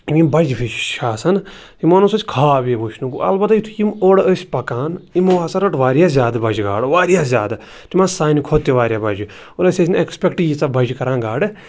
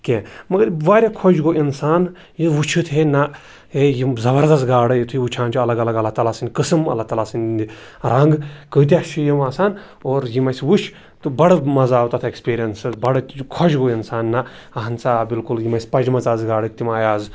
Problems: none marked